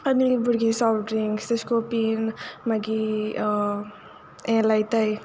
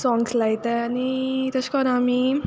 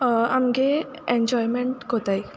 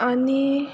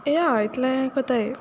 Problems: none marked